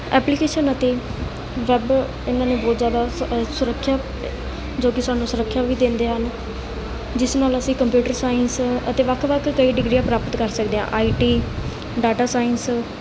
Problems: none marked